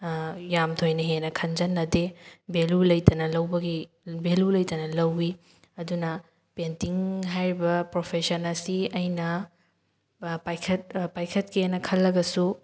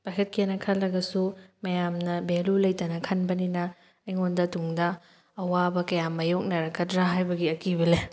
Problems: none marked